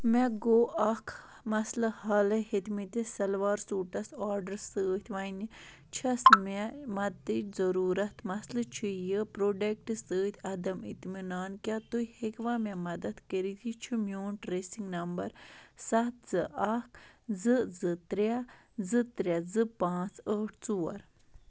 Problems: none marked